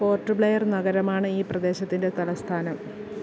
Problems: constant background noise